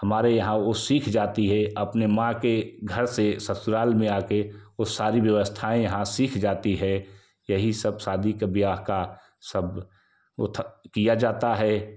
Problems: constant background noise